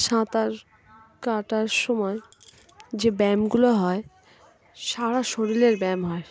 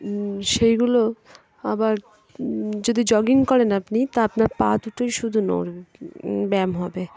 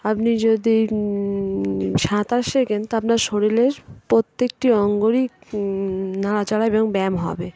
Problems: constant background noise, background conversations at intervals